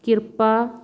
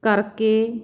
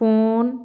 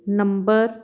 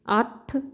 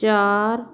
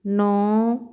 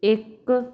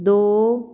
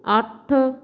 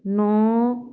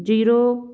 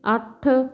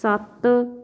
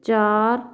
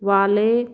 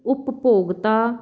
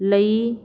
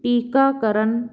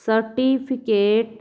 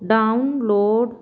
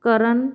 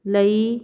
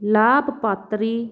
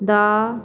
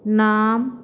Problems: background sounds at intervals